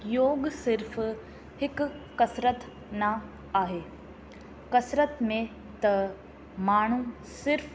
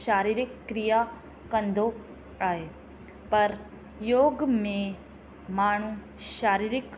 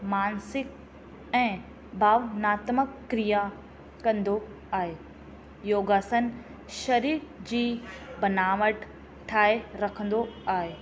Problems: constant background noise, echo